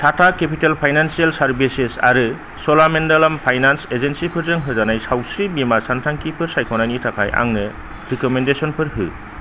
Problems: constant background noise, low volume